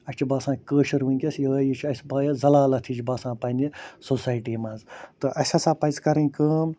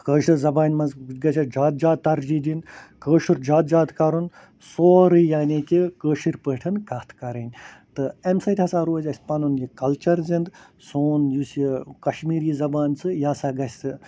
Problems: constant background noise